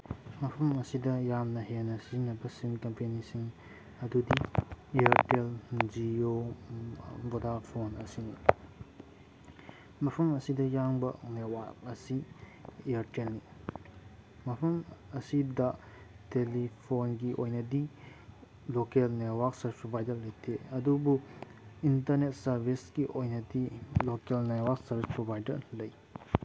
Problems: background sounds at intervals